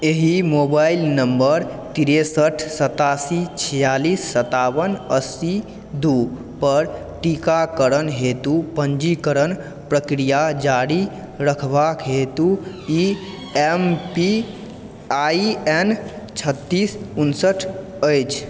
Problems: background sounds at intervals